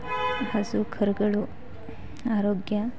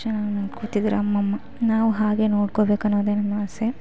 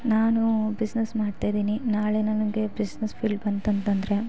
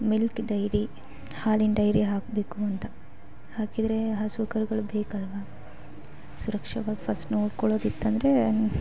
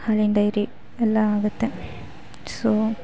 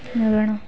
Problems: background sounds at intervals, background conversations at intervals